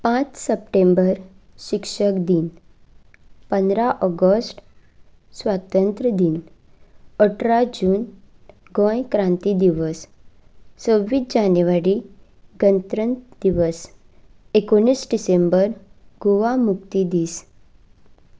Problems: none marked